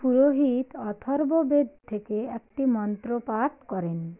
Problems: background conversations at intervals